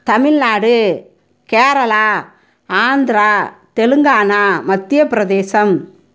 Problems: none marked